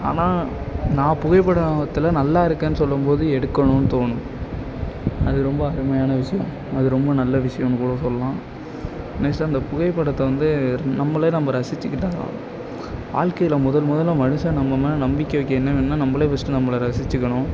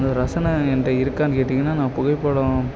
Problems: none marked